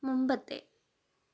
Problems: low volume